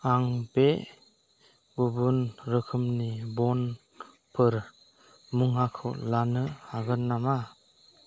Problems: none marked